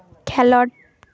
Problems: background sounds at intervals